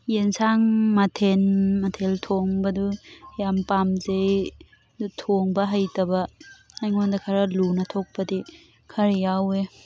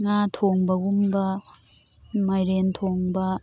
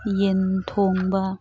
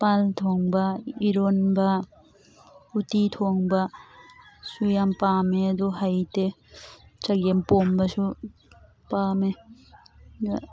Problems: constant background noise